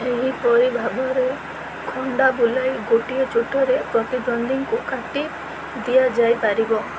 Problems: constant background noise